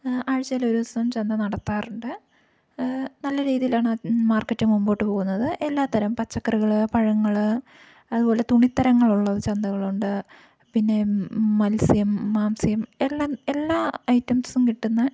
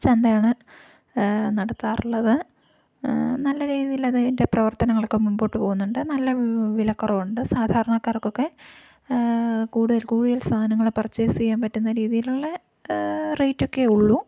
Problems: low volume